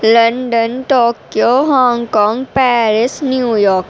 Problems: constant background noise